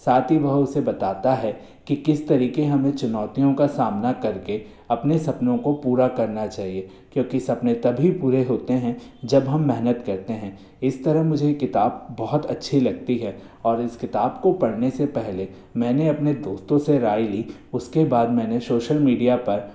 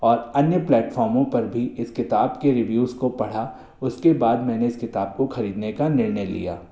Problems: constant background noise, echo